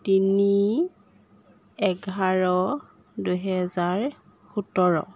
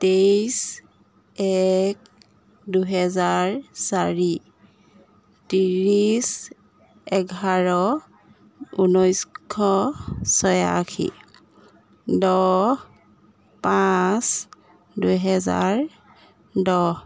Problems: none marked